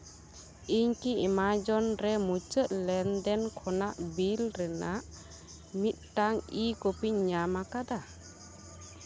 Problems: constant background noise